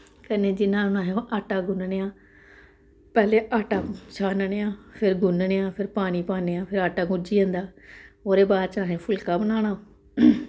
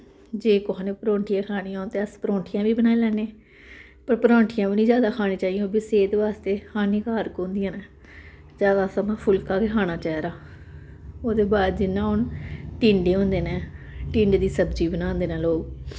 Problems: none marked